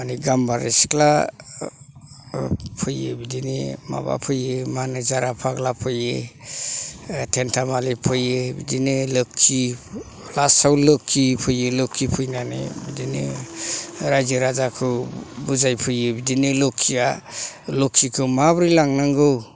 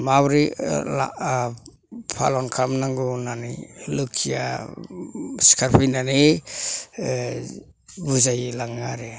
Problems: none marked